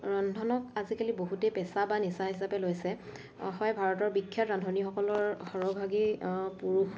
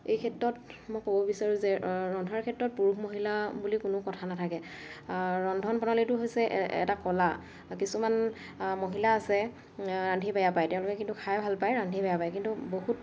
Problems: none marked